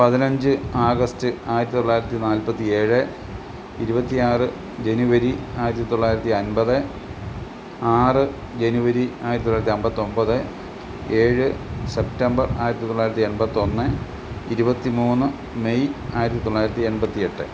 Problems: constant background noise